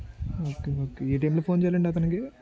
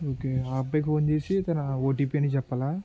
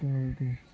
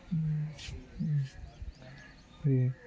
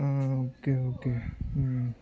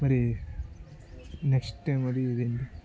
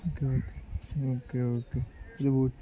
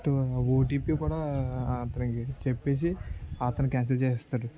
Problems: continuous background conversations